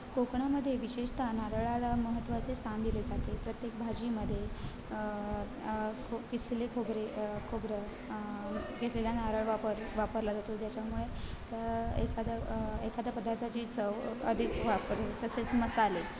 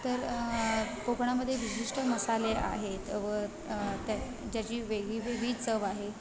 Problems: constant background noise, continuous background conversations